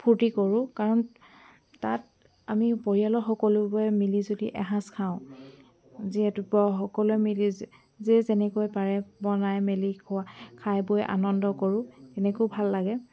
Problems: background sounds at intervals, background conversations at intervals